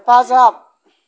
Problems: background conversations at intervals